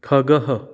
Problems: none marked